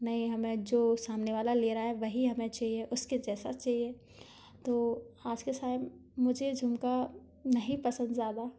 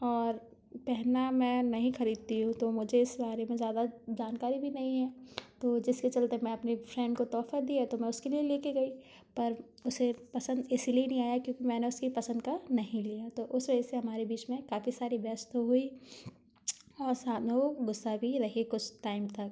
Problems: background sounds at intervals